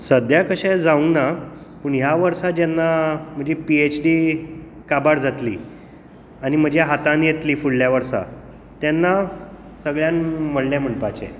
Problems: echo